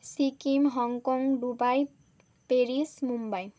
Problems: constant background noise